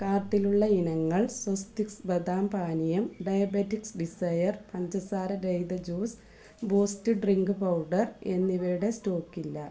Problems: low volume